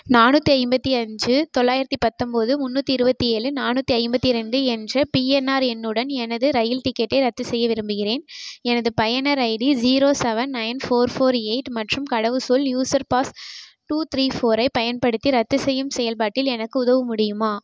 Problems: none marked